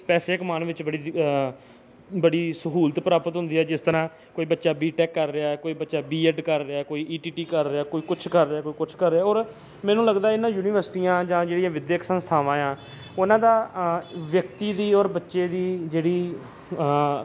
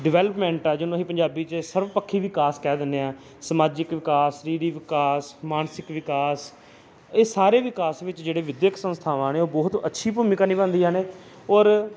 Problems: none marked